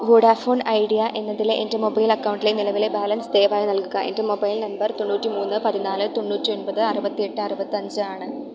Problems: background sounds at intervals